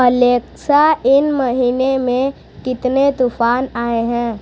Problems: constant background noise